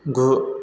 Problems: none marked